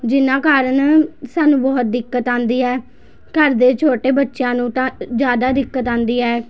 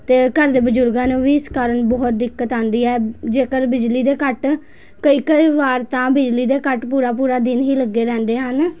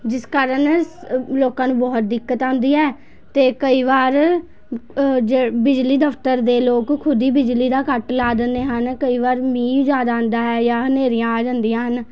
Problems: constant background noise